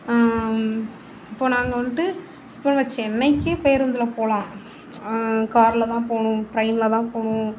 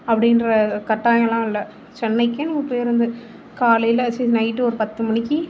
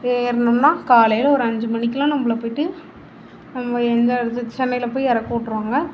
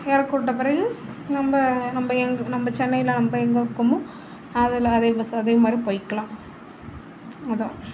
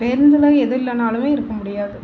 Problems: none marked